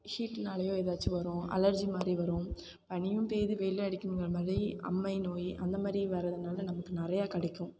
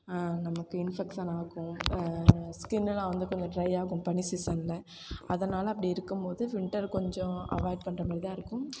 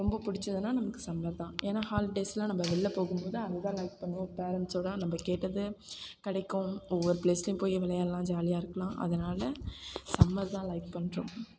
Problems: constant background noise